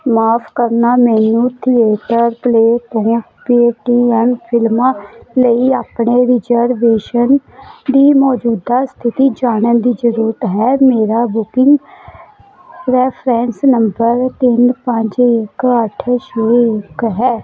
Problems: constant background noise